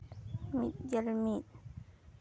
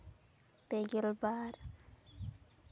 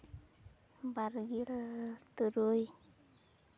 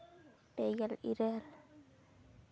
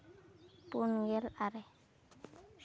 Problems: none marked